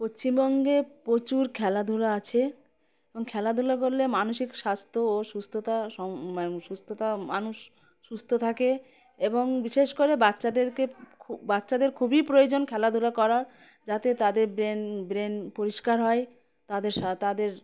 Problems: background sounds at intervals